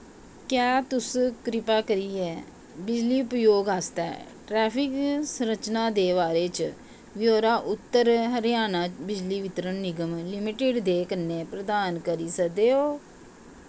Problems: constant background noise